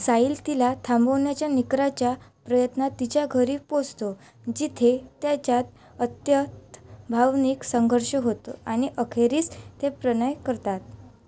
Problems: constant background noise